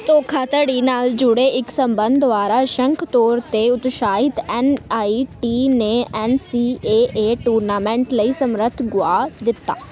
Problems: continuous background conversations